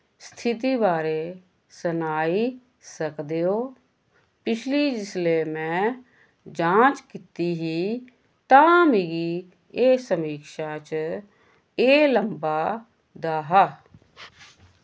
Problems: none marked